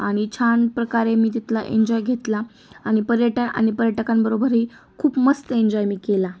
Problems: constant background noise, continuous background conversations